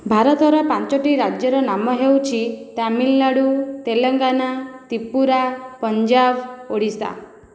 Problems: none marked